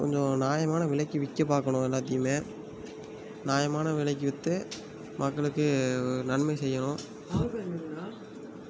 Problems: low volume